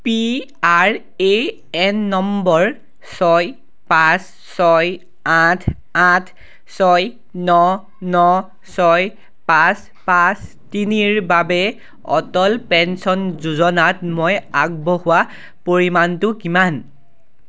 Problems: background sounds at intervals